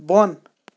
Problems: constant background noise